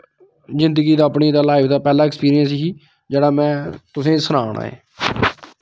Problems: none marked